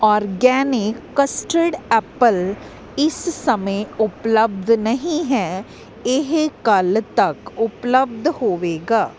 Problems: none marked